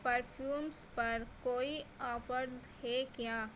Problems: constant background noise